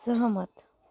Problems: background sounds at intervals